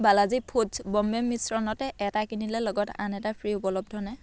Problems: none marked